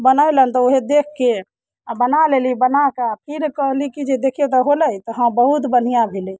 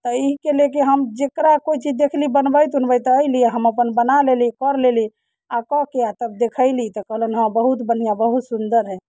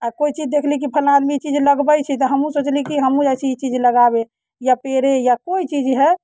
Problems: none marked